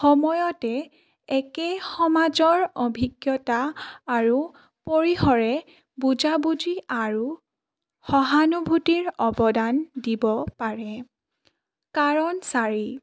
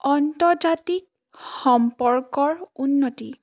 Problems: none marked